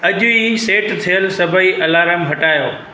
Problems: constant background noise, echo